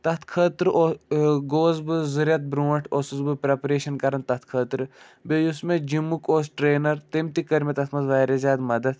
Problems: none marked